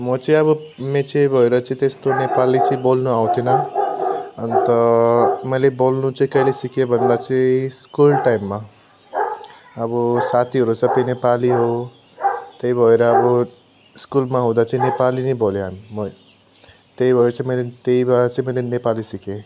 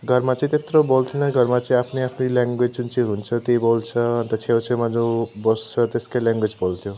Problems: none marked